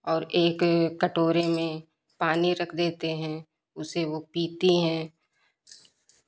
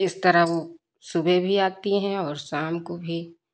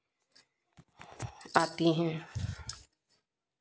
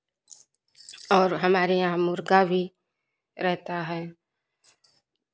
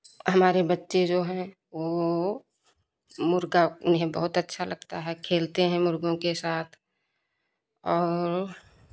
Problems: constant background noise